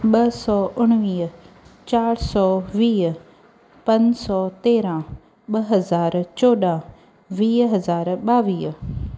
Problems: none marked